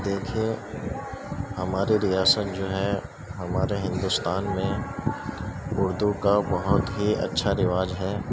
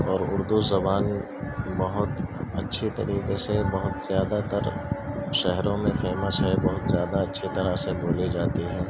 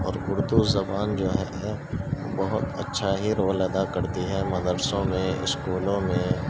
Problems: constant background noise, low volume